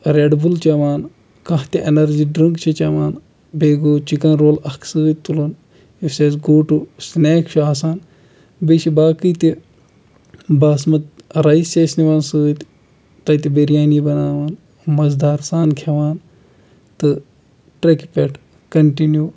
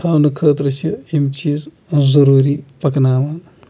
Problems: background sounds at intervals